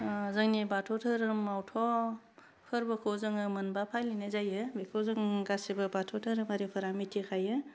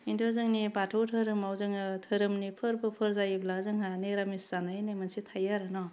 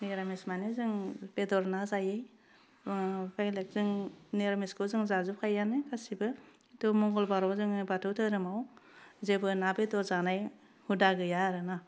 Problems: background sounds at intervals, low volume